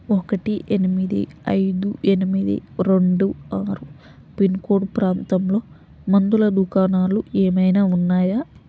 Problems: constant background noise